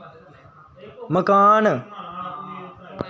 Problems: none marked